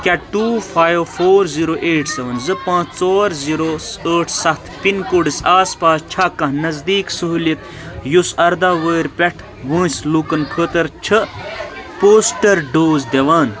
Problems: constant background noise